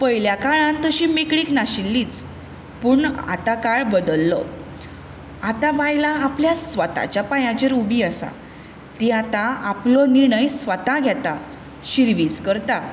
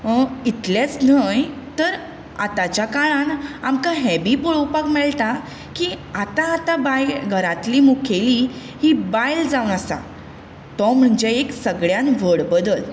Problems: constant background noise